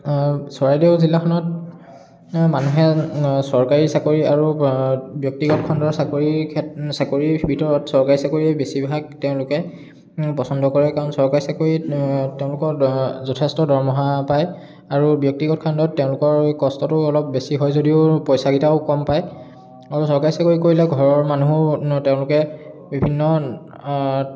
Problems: background sounds at intervals, background conversations at intervals